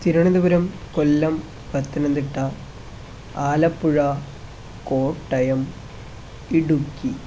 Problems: constant background noise